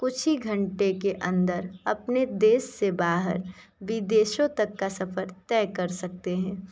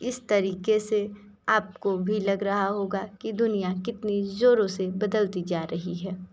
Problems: background sounds at intervals